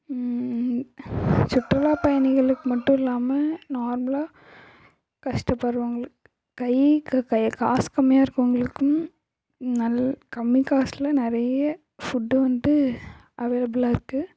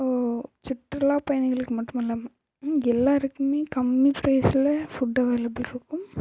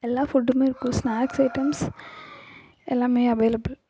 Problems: constant background noise, echo, low volume